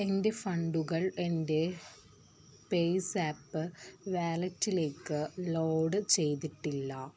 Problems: constant background noise